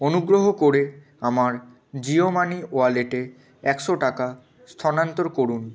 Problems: none marked